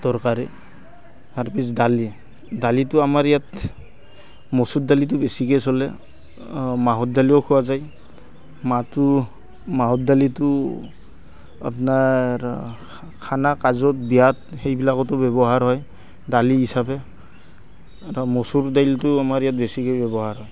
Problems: constant background noise, background conversations at intervals